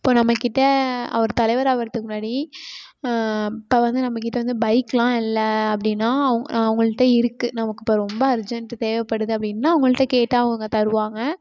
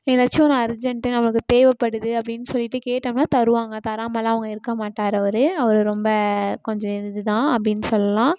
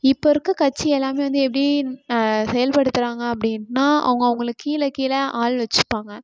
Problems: background sounds at intervals